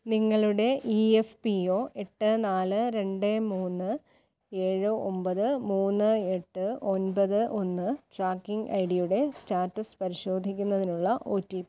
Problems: none marked